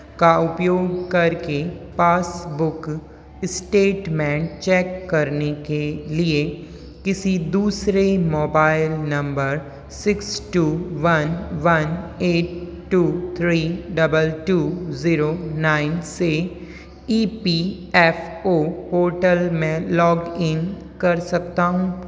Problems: constant background noise, continuous background conversations